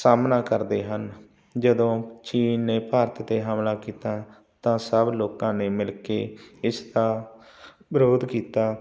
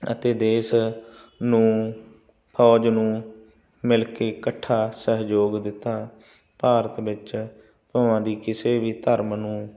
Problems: background sounds at intervals